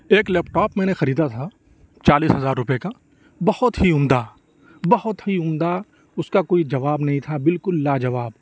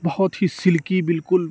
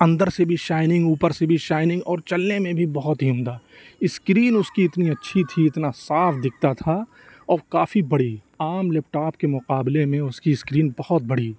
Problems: constant background noise